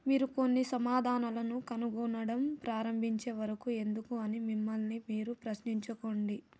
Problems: low volume